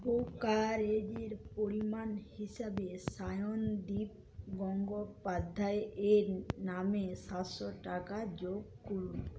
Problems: low volume